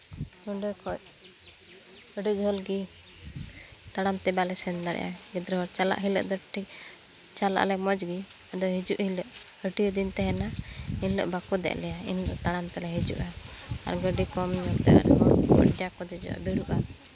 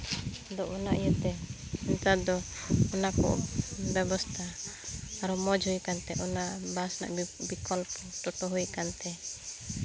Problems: constant background noise, background conversations at intervals